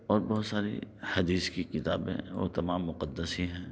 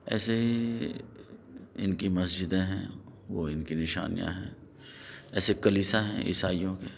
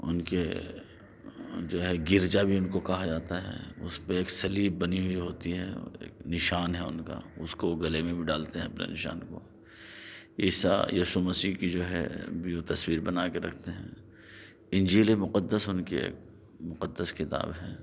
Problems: none marked